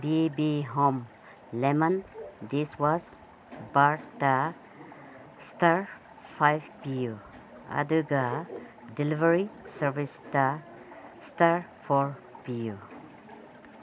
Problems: constant background noise